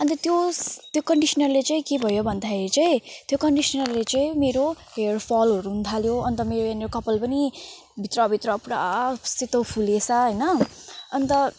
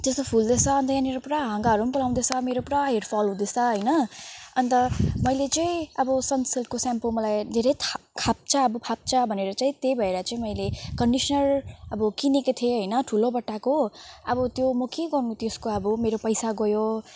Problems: background sounds at intervals